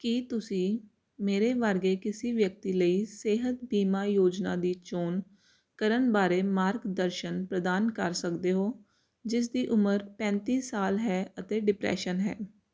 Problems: constant background noise